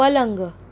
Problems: none marked